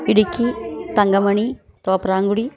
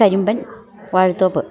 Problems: continuous background conversations